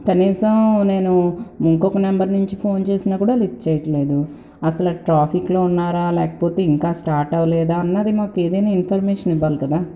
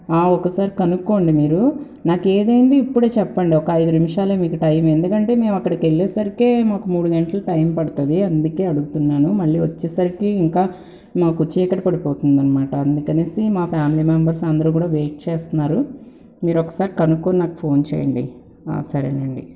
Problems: constant background noise